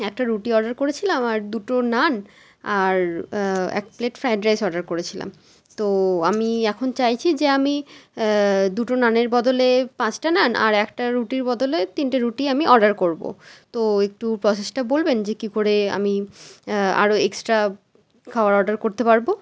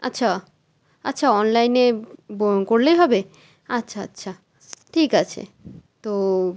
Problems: constant background noise